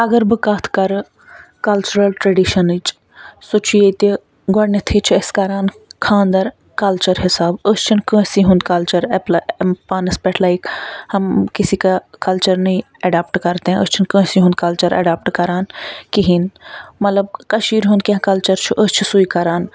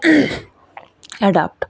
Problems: none marked